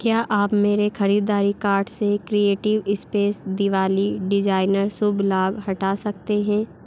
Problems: constant background noise